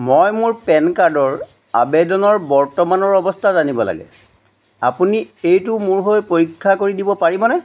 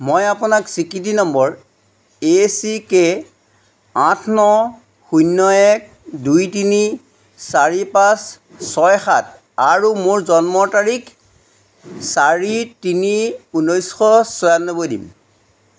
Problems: background sounds at intervals